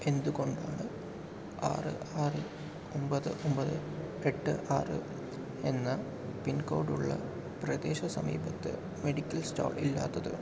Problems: low volume